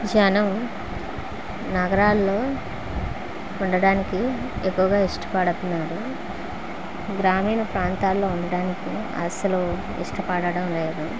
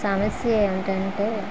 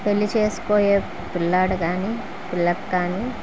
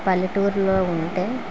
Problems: none marked